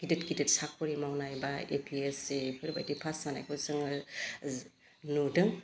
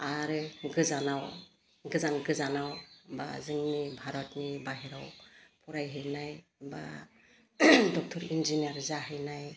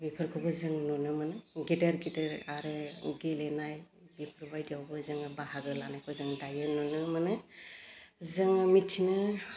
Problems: low volume